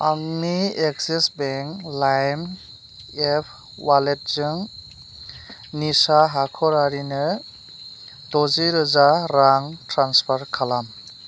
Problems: constant background noise